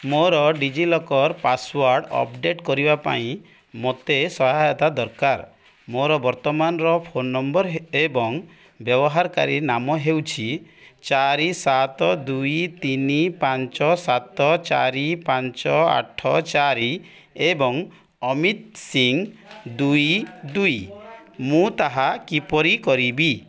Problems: background conversations at intervals